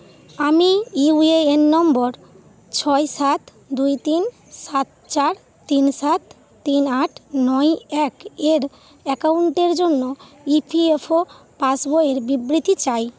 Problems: none marked